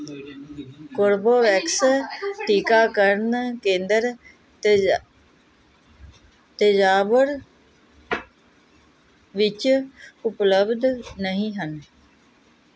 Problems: background conversations at intervals